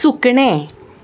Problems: background sounds at intervals